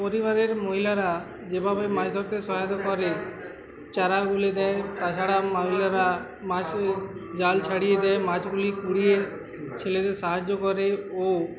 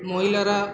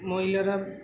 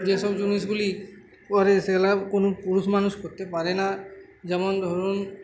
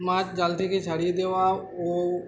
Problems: constant background noise